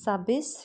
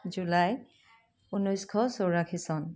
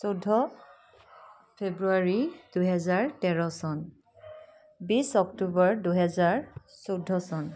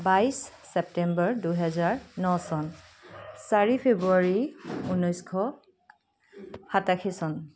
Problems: background sounds at intervals